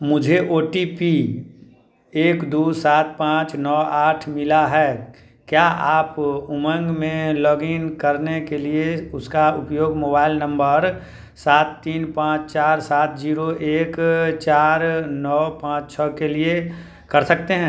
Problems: background sounds at intervals